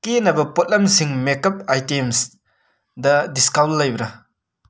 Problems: none marked